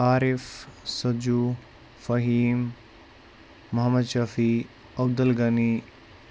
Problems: none marked